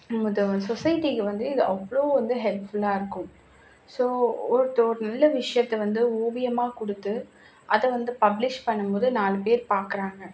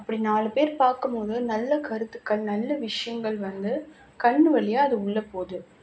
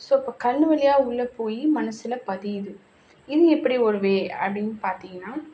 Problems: background sounds at intervals